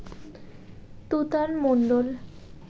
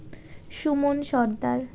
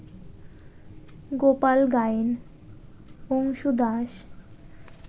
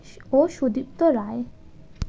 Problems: none marked